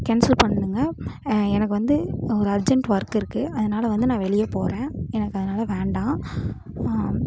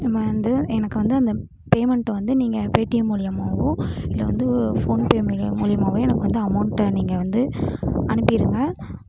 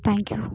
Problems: constant background noise